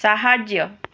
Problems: none marked